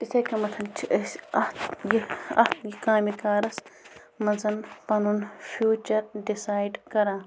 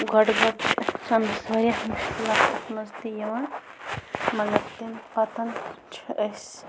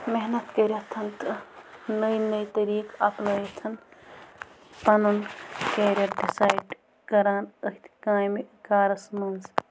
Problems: constant background noise